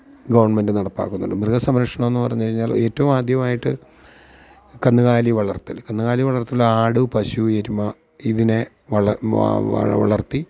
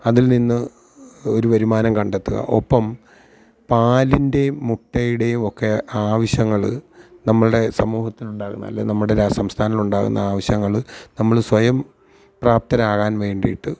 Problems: none marked